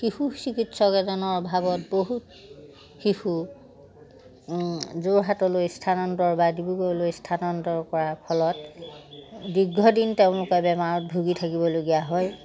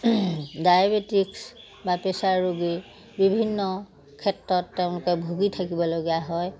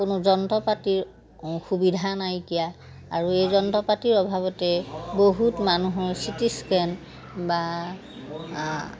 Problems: constant background noise, background conversations at intervals